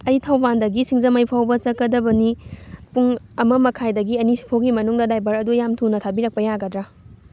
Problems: none marked